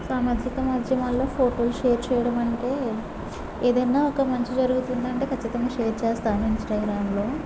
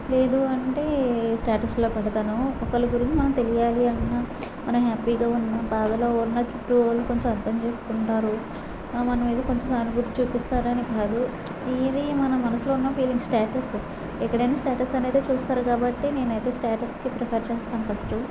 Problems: low volume